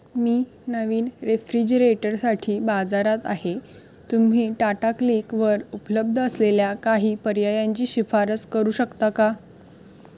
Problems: background sounds at intervals